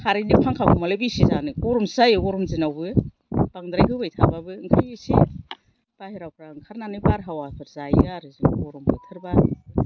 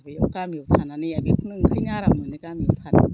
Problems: none marked